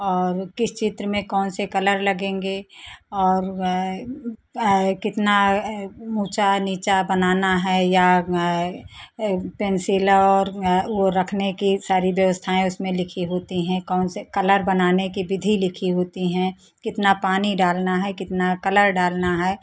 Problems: constant background noise